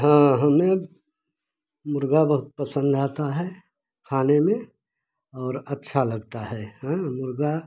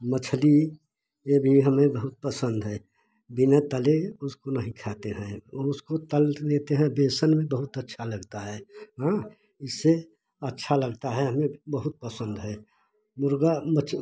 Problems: background sounds at intervals